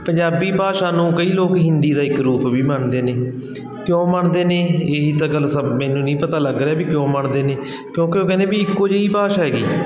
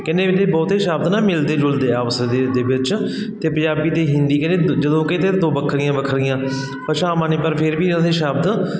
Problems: continuous background conversations